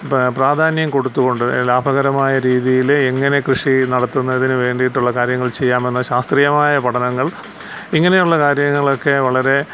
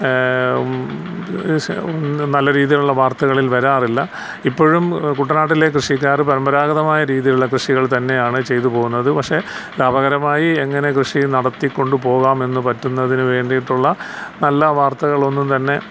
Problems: constant background noise